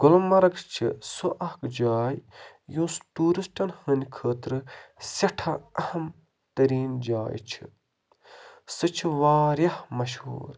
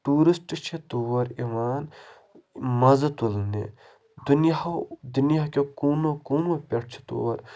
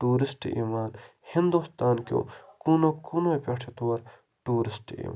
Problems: none marked